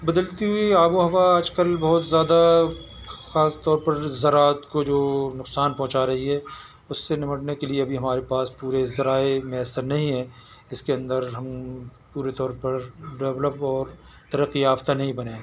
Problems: none marked